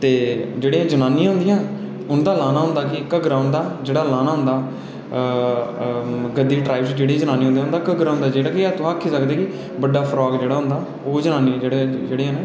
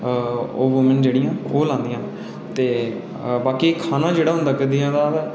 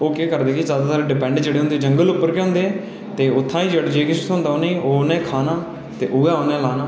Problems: none marked